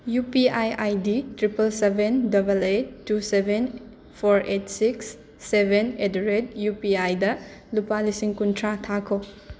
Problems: constant background noise